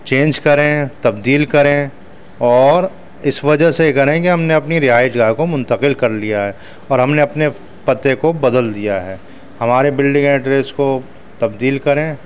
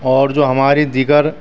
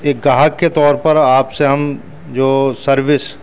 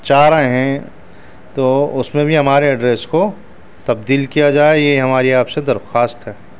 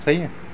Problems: constant background noise, background conversations at intervals